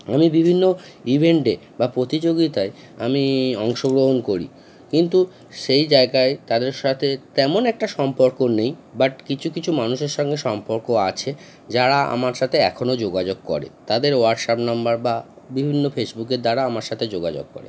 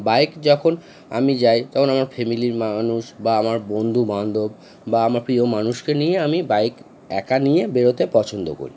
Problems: constant background noise